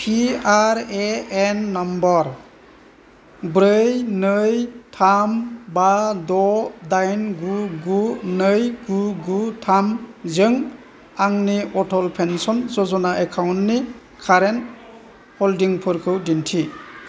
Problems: constant background noise